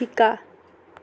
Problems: none marked